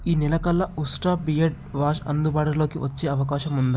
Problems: none marked